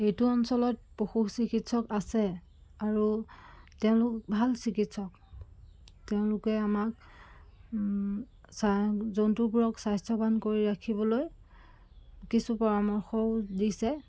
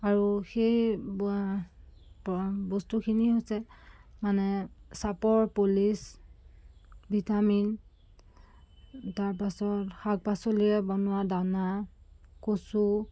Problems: constant background noise